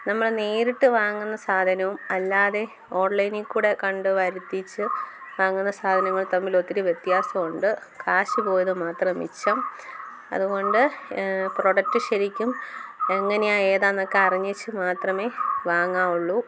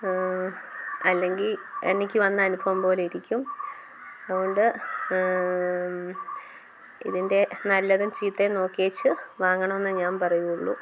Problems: background sounds at intervals